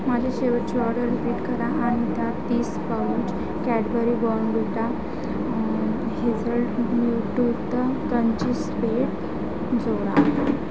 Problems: constant background noise, background conversations at intervals